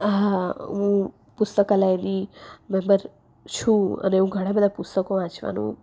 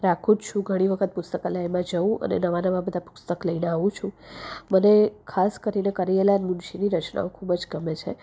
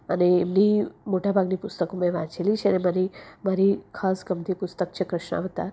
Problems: none marked